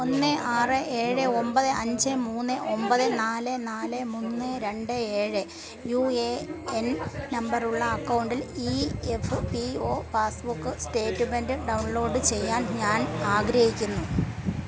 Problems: constant background noise, background conversations at intervals